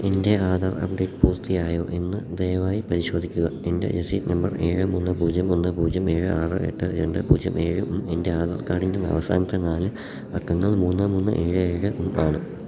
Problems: background sounds at intervals